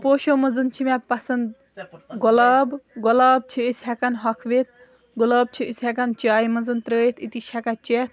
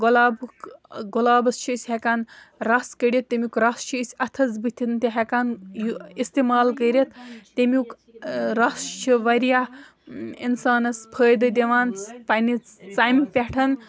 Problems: background sounds at intervals, background conversations at intervals